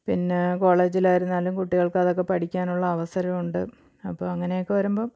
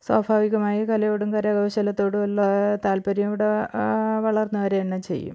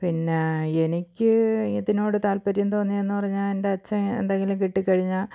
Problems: none marked